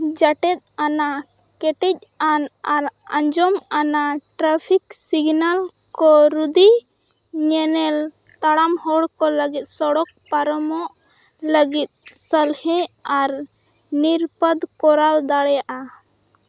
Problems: constant background noise